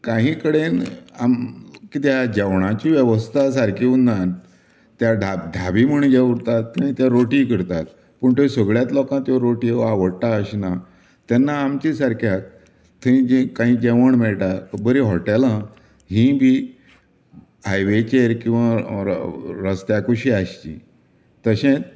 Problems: none marked